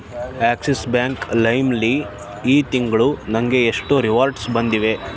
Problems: constant background noise